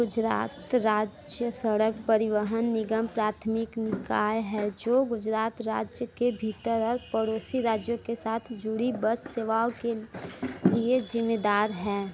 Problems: constant background noise